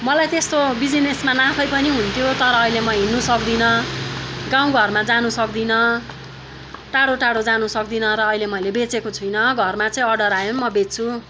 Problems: continuous background conversations